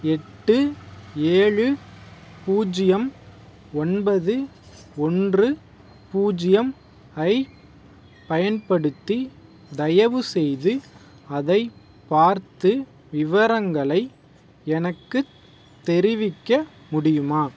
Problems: background sounds at intervals